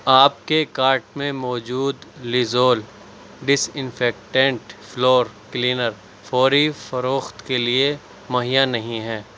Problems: background sounds at intervals